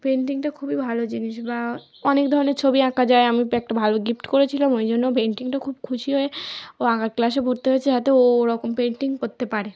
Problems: constant background noise